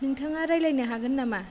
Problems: low volume